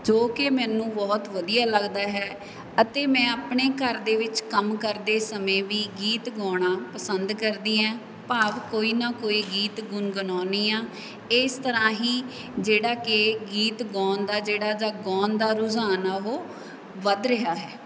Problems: background sounds at intervals